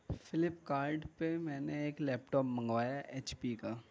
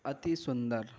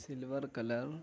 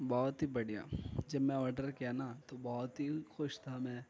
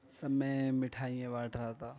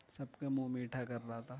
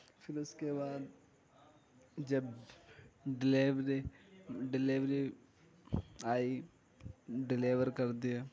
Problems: background sounds at intervals, background conversations at intervals